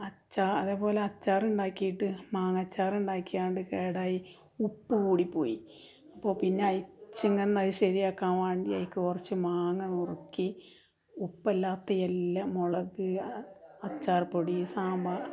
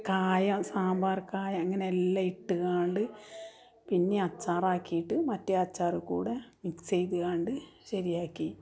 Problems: background conversations at intervals